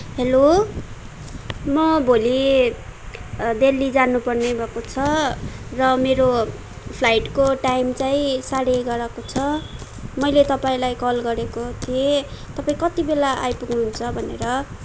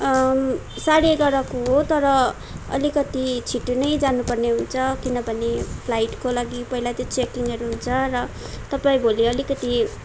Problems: none marked